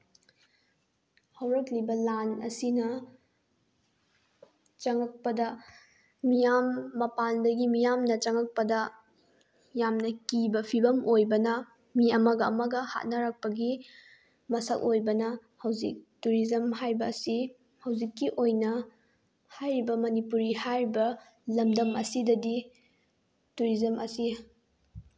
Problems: background sounds at intervals